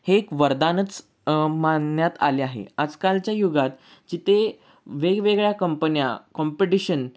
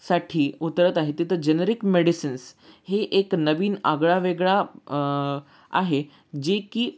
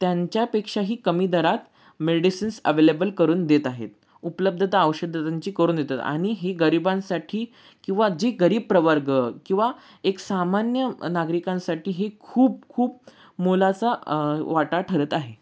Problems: none marked